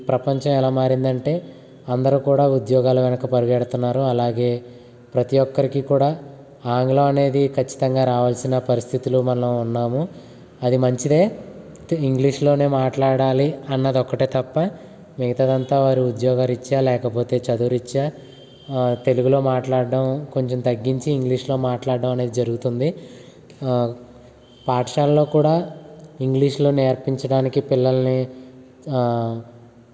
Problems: constant background noise